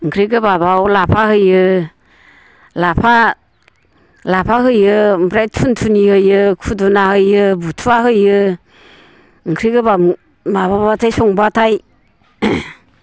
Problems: constant background noise